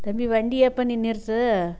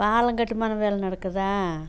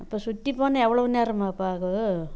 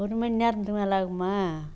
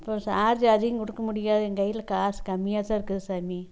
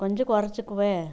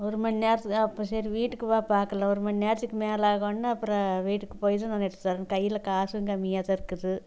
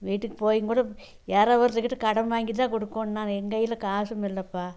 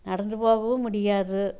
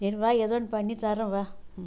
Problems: low volume